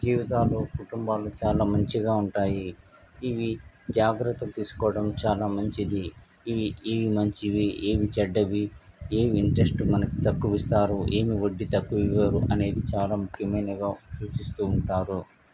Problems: constant background noise